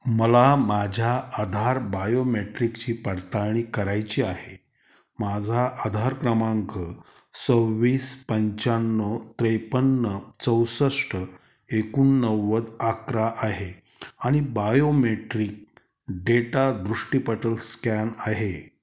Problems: none marked